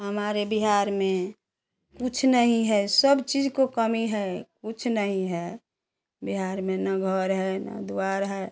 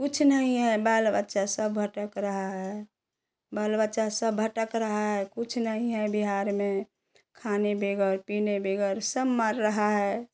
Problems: background sounds at intervals